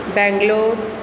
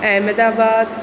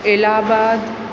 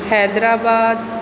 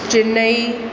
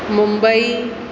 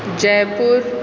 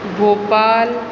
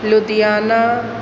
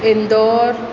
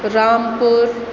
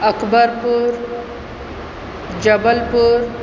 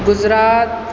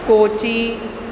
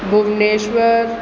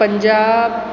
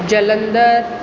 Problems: constant background noise